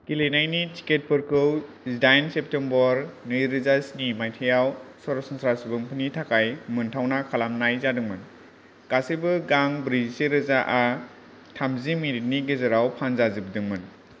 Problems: none marked